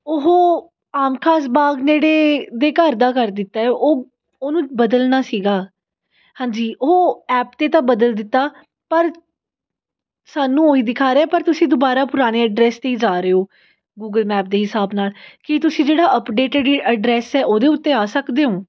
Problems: background sounds at intervals